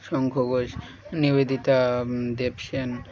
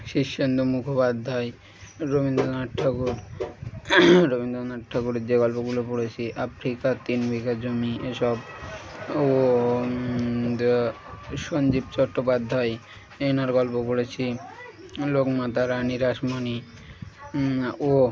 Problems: none marked